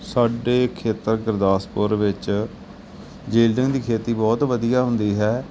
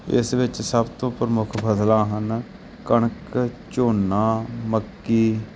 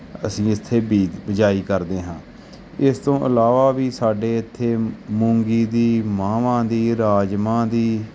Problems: constant background noise